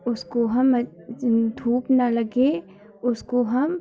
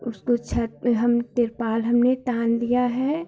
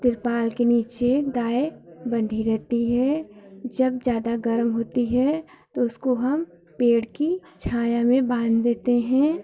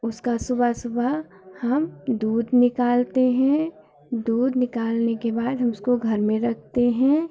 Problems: none marked